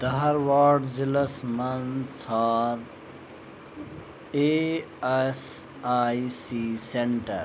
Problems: constant background noise